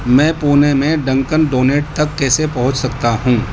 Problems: constant background noise